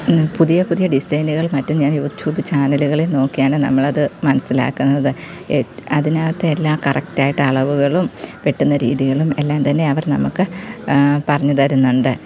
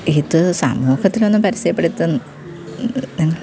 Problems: constant background noise